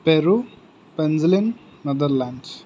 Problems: constant background noise